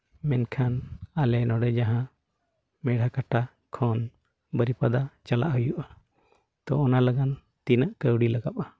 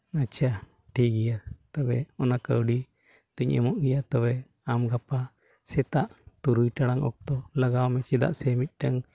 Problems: background sounds at intervals